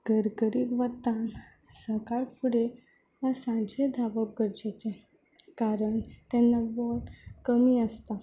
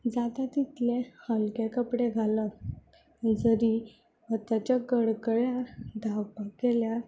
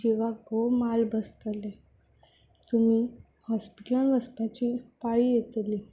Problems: background sounds at intervals